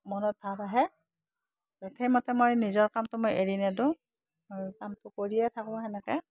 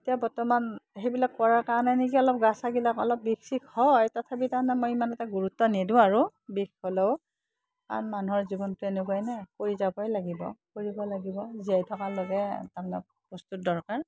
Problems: none marked